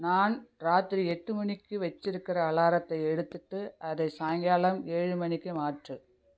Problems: none marked